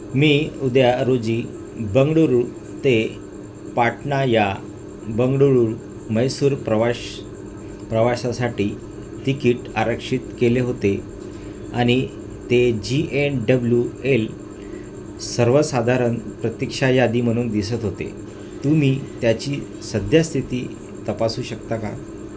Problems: constant background noise